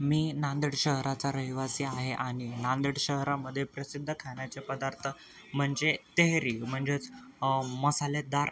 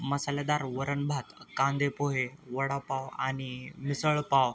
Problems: constant background noise, background conversations at intervals